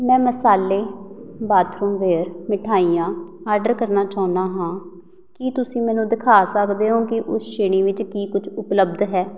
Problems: none marked